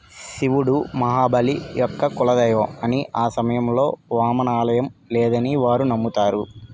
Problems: constant background noise